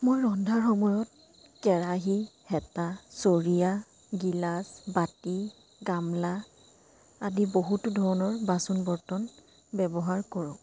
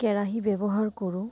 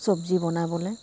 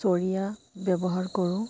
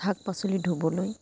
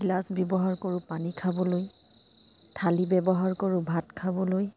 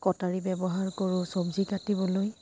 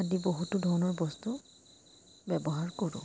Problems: constant background noise